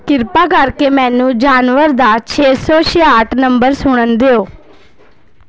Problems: background sounds at intervals, background conversations at intervals